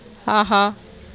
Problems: none marked